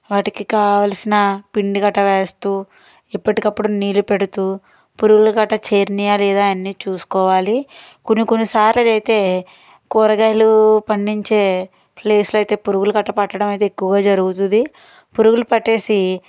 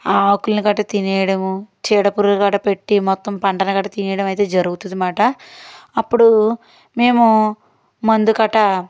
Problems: none marked